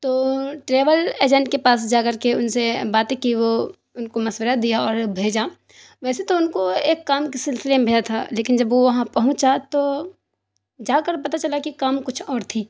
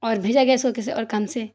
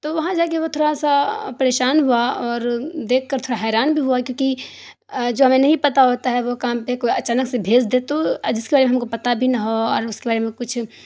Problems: none marked